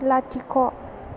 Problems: none marked